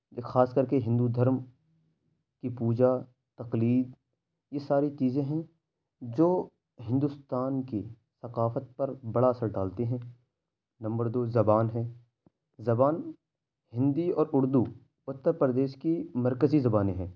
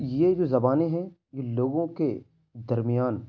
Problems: none marked